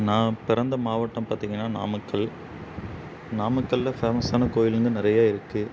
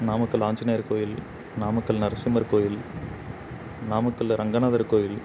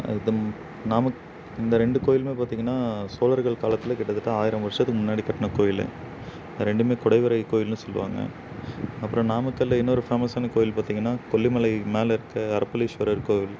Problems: constant background noise